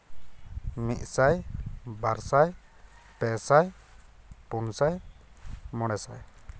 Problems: none marked